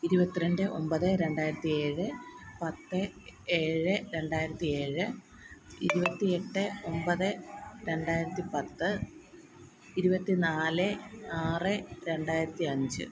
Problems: none marked